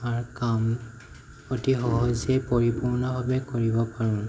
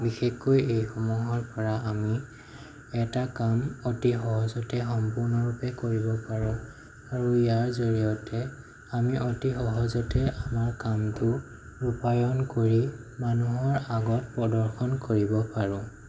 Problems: none marked